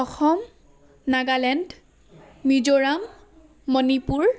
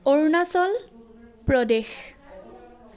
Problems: background sounds at intervals, background conversations at intervals